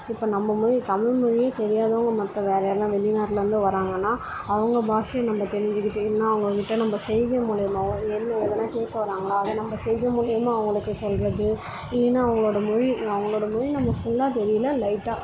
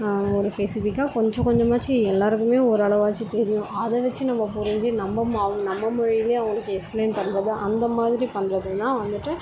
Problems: constant background noise, background conversations at intervals